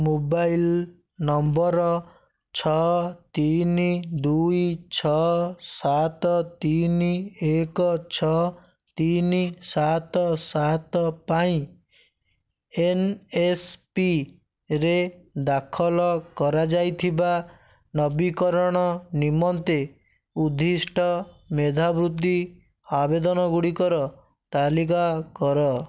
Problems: none marked